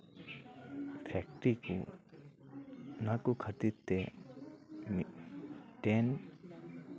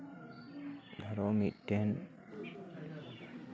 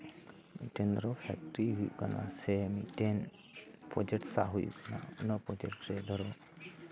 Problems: continuous background conversations